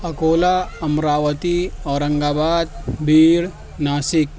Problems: constant background noise, background conversations at intervals